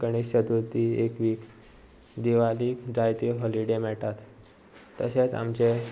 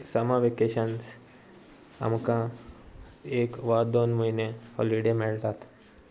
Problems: none marked